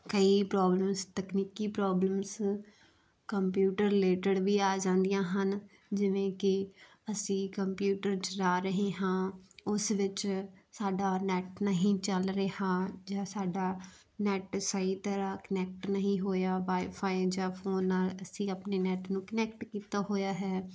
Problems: background sounds at intervals